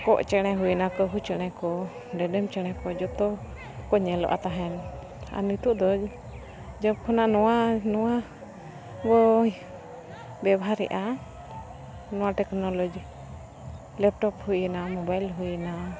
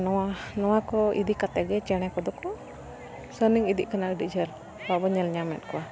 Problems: constant background noise, background conversations at intervals